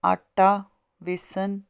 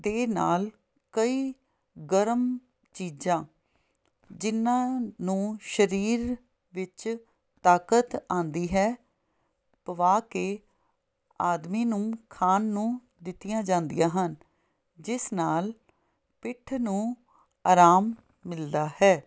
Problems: none marked